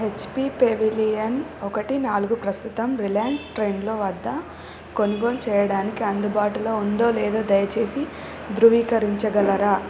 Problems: constant background noise